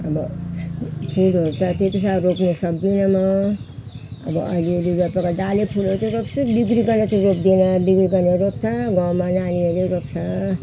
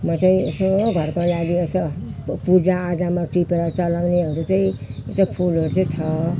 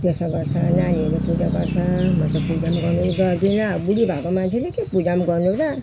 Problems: constant background noise, background conversations at intervals